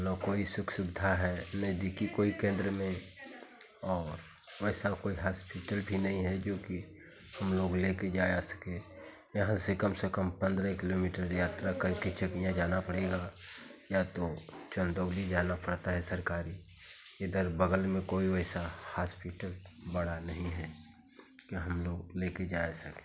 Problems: constant background noise